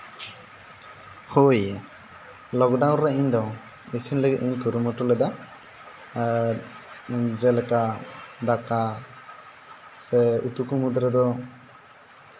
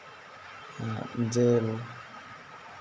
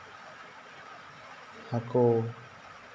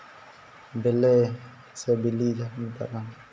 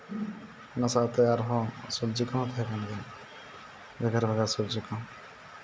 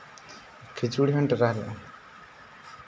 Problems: background sounds at intervals